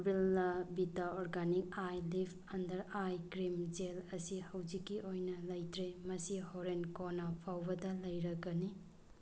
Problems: background sounds at intervals